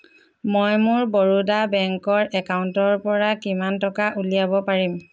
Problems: background sounds at intervals